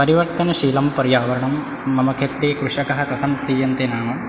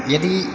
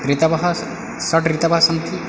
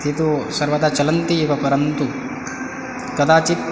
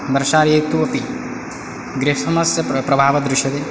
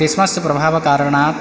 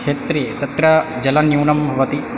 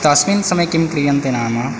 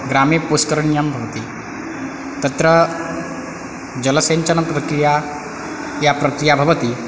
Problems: background sounds at intervals